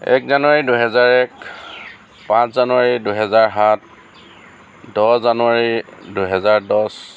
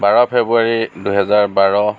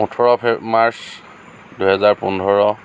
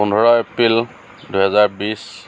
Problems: none marked